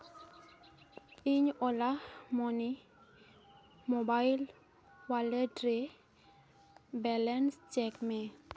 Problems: constant background noise